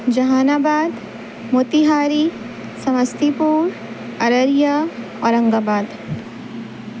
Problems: constant background noise